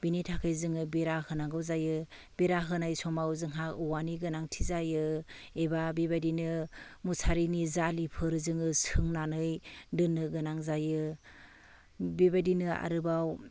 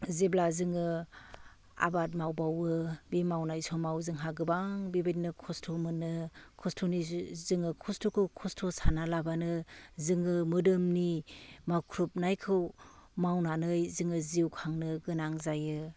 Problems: constant background noise